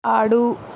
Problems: constant background noise